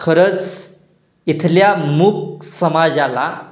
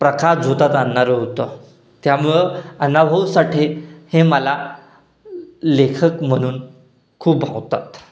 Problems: constant background noise, echo